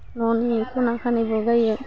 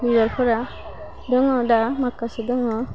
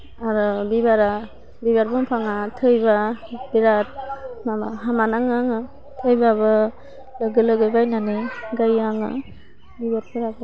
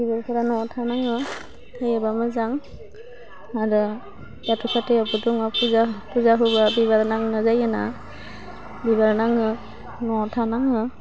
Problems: constant background noise